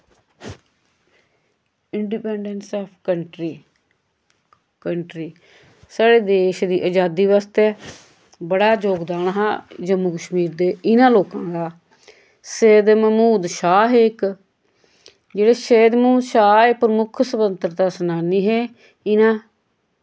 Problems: background sounds at intervals, echo